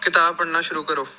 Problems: none marked